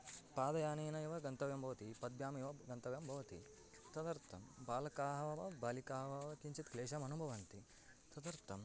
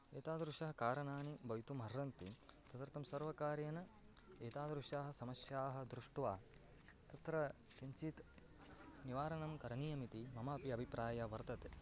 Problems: none marked